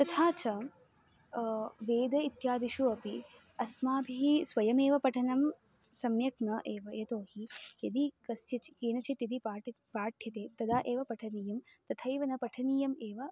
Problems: background sounds at intervals